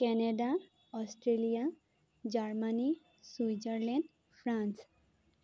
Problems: none marked